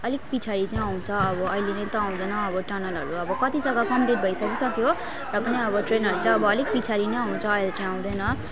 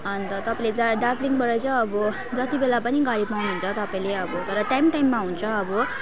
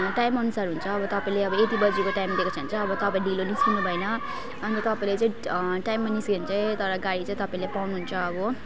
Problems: constant background noise, continuous background conversations